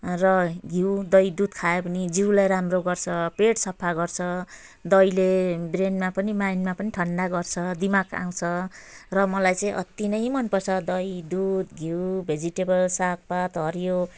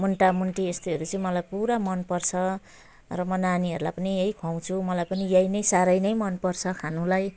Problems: background sounds at intervals